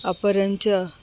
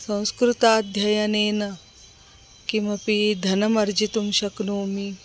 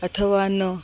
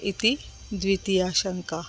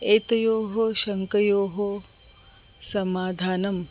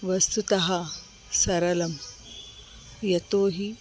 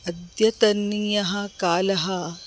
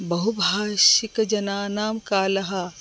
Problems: constant background noise